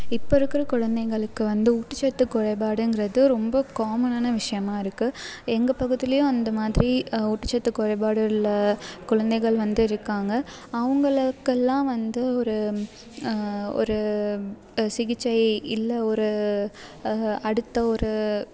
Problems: constant background noise